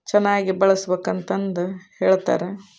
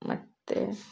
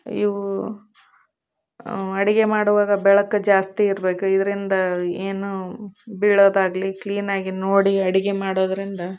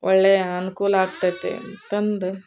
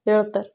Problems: none marked